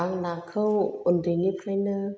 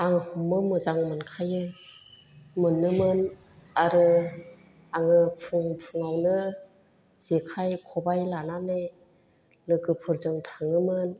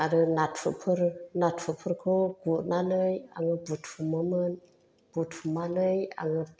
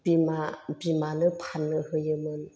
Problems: none marked